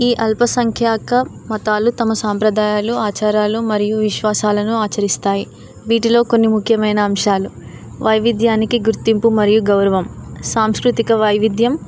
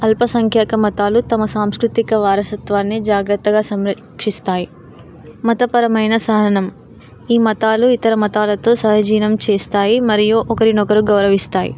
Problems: background sounds at intervals